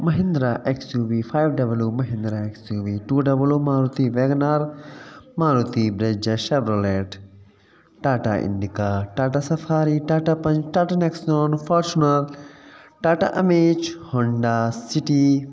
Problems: constant background noise, echo